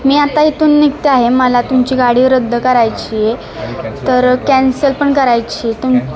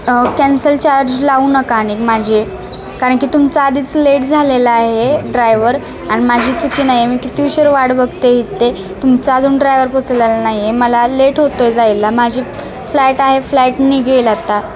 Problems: constant background noise, continuous background conversations